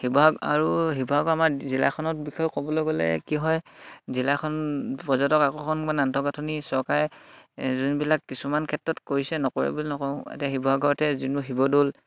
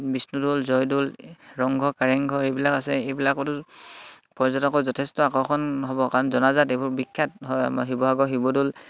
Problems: background sounds at intervals